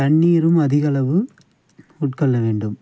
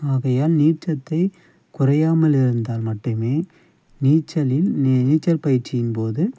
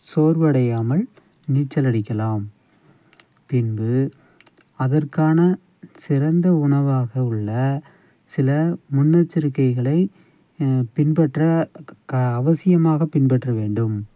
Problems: background sounds at intervals, low volume